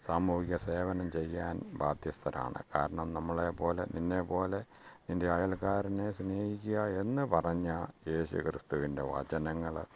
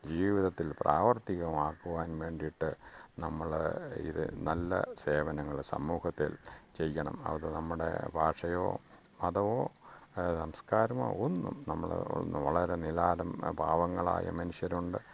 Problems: background sounds at intervals, low volume